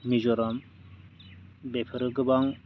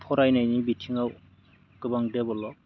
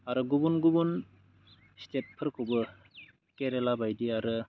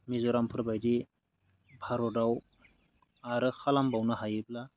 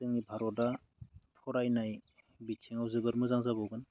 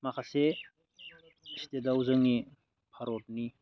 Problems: none marked